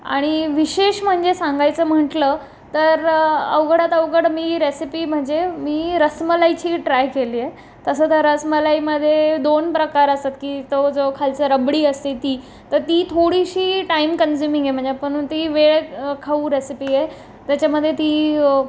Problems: background sounds at intervals